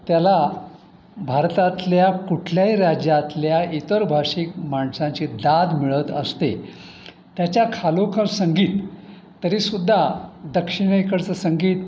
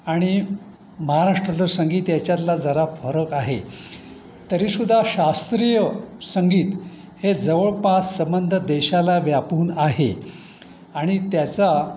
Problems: constant background noise